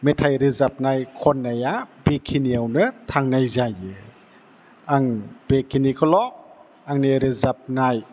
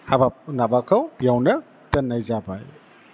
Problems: background sounds at intervals